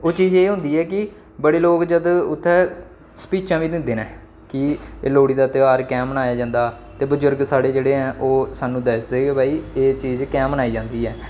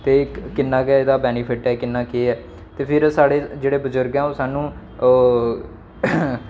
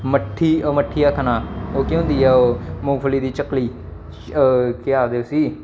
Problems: none marked